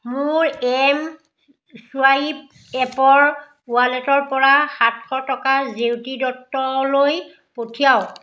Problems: background sounds at intervals, echo